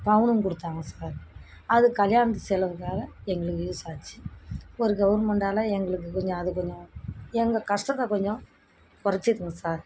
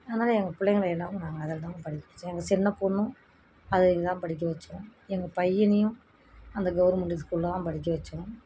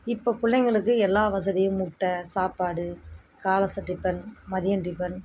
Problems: constant background noise